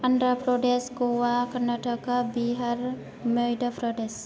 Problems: none marked